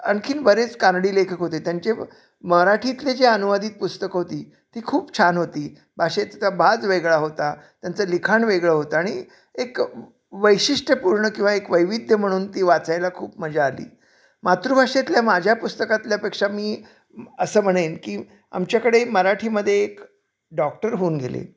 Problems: none marked